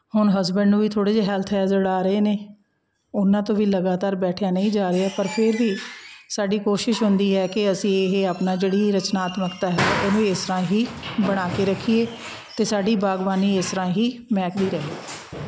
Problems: background sounds at intervals